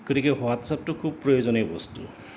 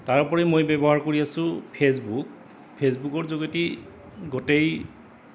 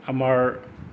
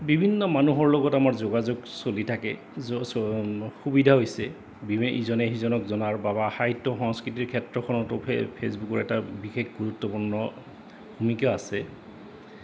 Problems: constant background noise